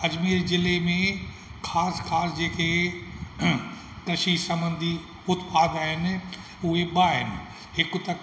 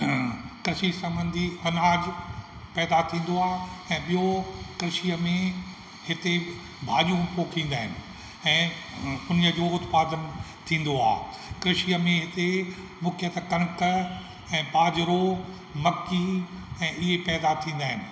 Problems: constant background noise, echo